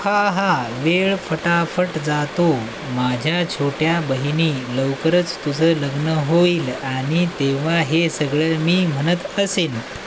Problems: constant background noise